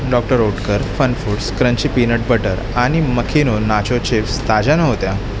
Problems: constant background noise